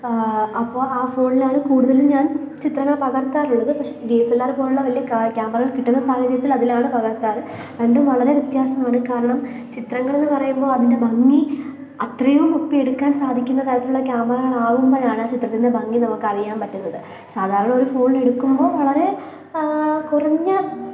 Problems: none marked